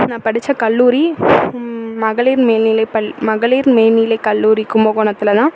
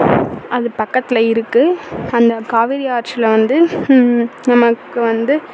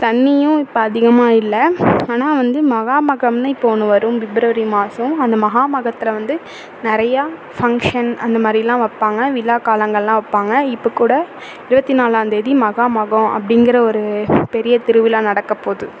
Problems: constant background noise